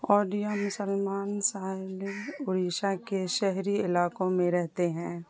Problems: constant background noise